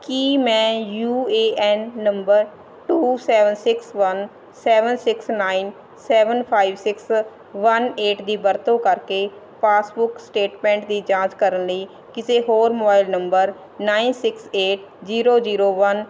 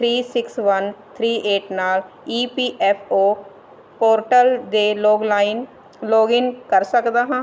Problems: constant background noise